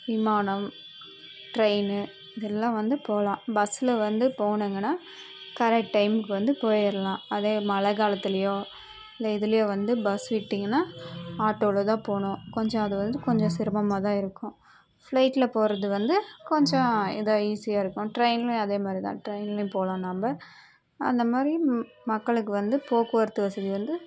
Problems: none marked